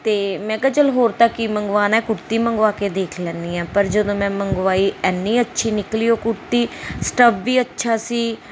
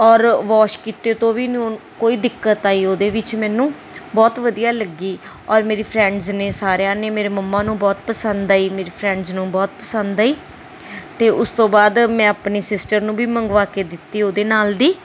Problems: constant background noise